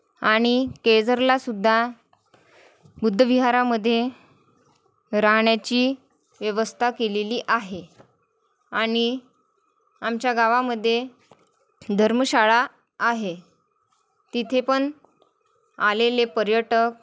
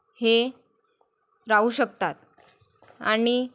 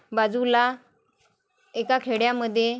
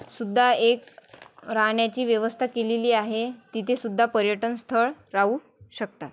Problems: none marked